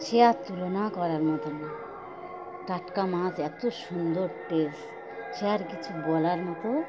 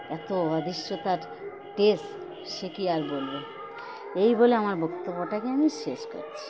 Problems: constant background noise